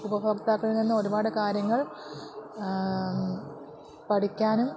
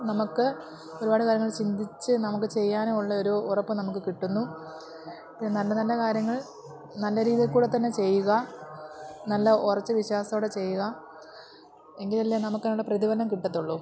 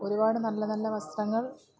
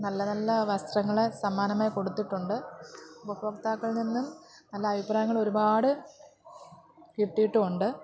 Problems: constant background noise